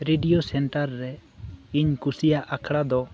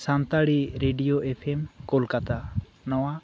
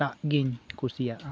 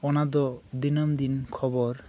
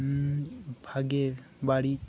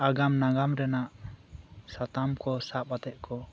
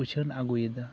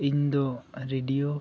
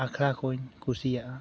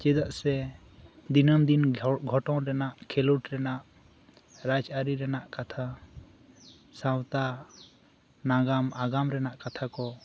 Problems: background conversations at intervals